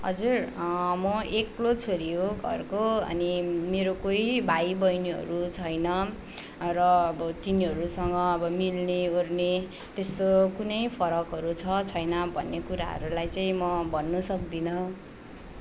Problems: constant background noise